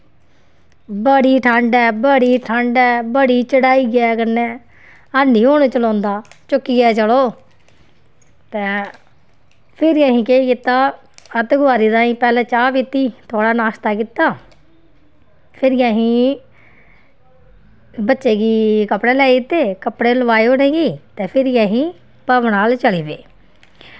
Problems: background sounds at intervals